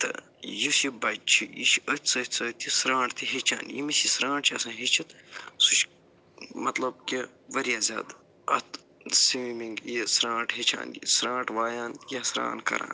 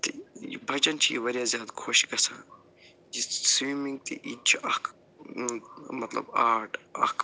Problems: low volume